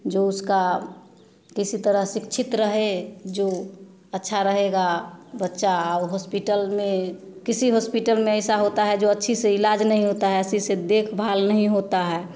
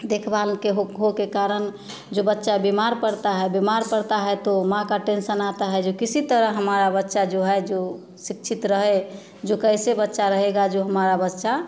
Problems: none marked